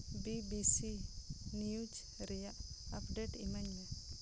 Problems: constant background noise